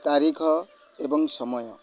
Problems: none marked